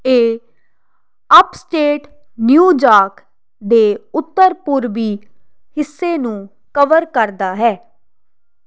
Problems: constant background noise